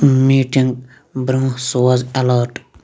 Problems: background sounds at intervals